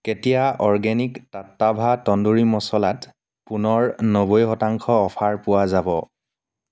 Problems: none marked